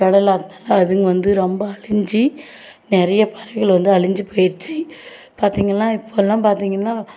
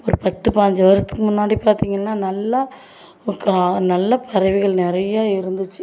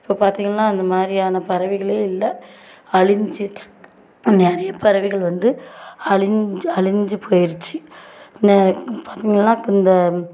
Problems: none marked